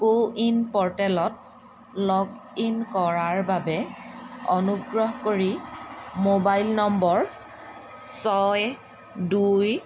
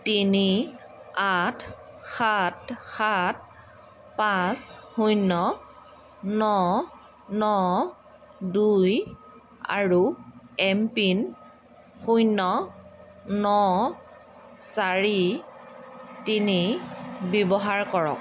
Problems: constant background noise